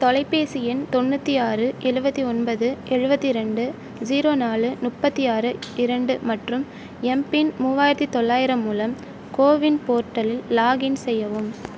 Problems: none marked